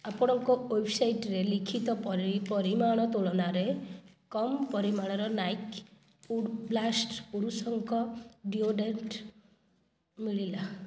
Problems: none marked